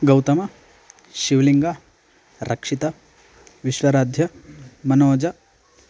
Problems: constant background noise